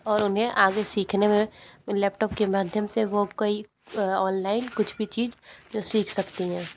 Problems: background sounds at intervals, background conversations at intervals